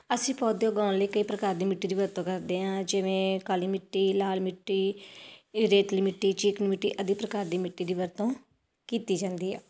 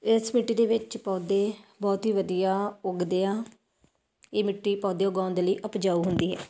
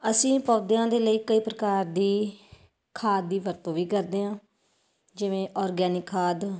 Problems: none marked